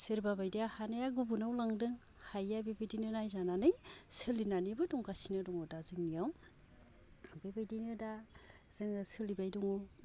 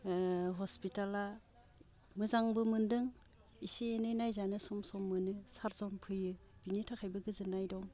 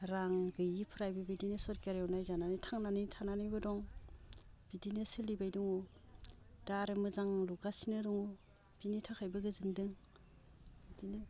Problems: low volume